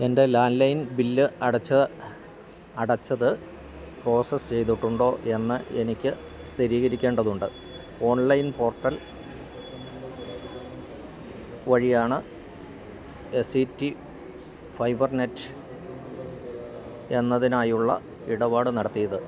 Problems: constant background noise, low volume